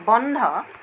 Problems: constant background noise